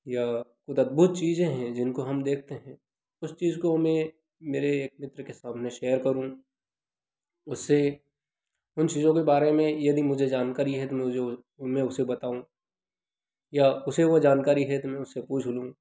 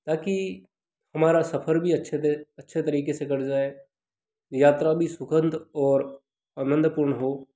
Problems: constant background noise